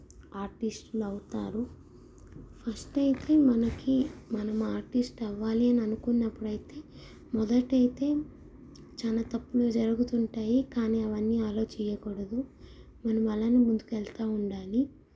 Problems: low volume